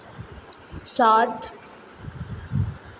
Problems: constant background noise, echo